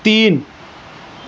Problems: constant background noise